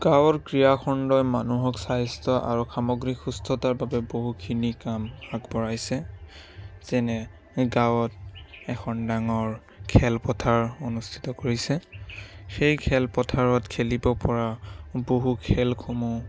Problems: constant background noise